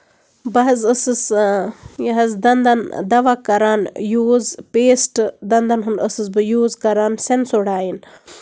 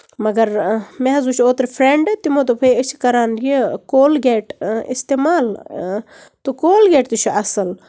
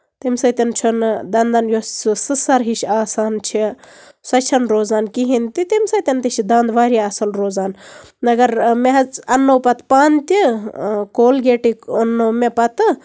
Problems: none marked